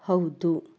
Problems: none marked